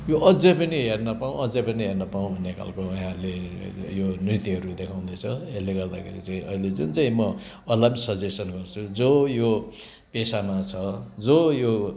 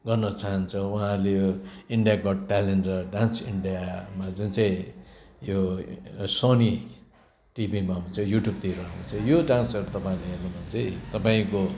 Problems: background sounds at intervals